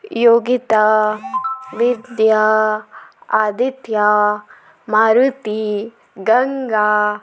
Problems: background sounds at intervals